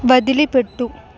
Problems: constant background noise